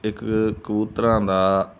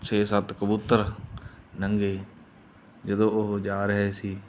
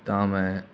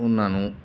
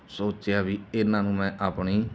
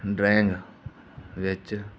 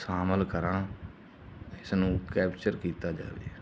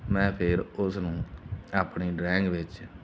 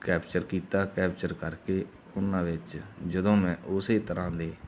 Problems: none marked